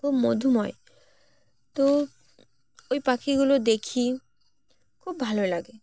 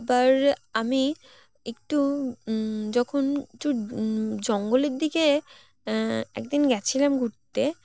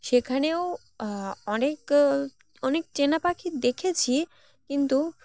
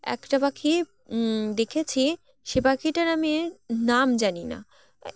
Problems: constant background noise, background conversations at intervals